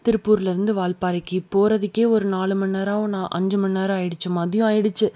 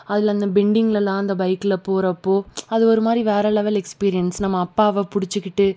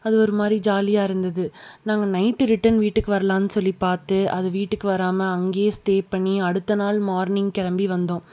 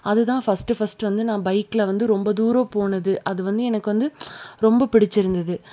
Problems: none marked